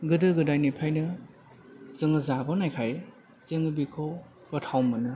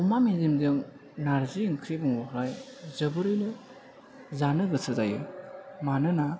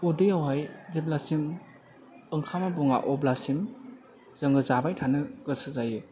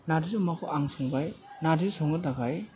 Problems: none marked